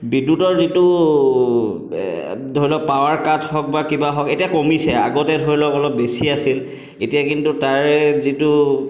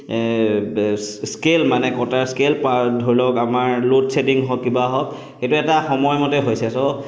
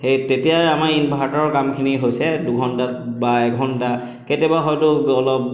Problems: background sounds at intervals, echo